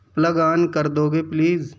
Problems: constant background noise